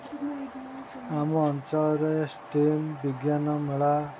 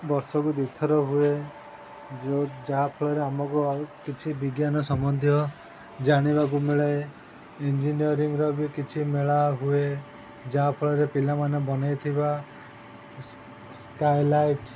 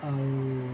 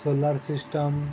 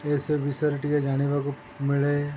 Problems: constant background noise